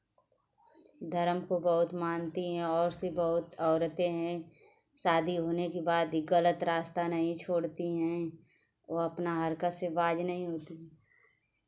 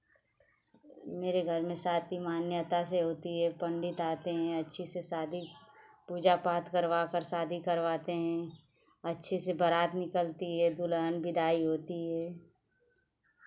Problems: constant background noise